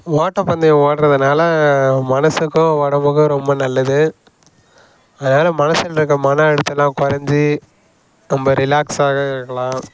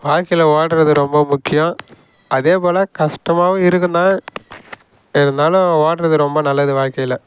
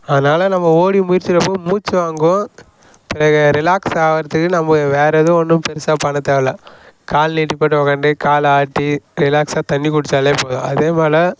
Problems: background sounds at intervals